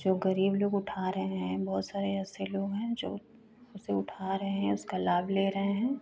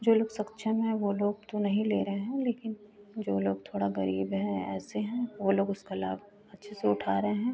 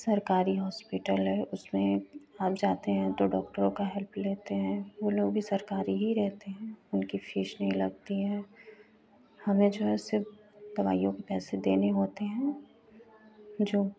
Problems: constant background noise